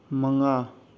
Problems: low volume